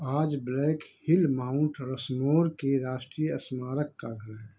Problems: background sounds at intervals, echo